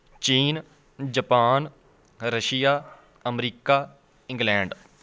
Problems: constant background noise